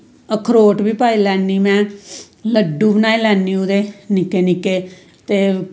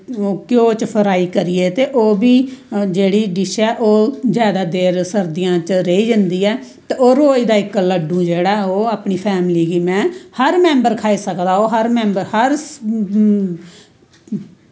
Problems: none marked